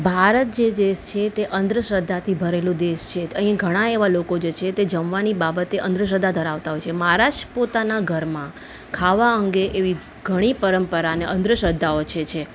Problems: none marked